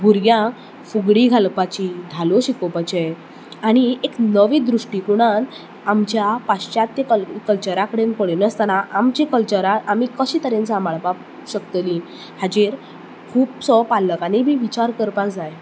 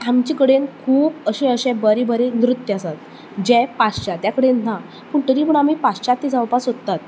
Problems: none marked